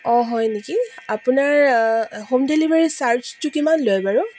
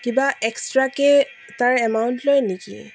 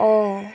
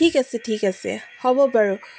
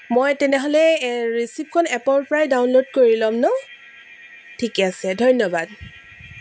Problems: constant background noise